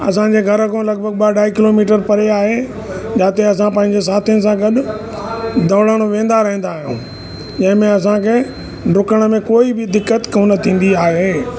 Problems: constant background noise